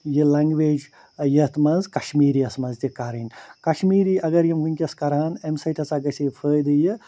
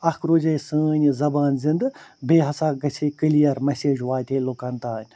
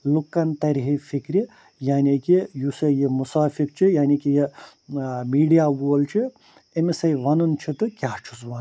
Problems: constant background noise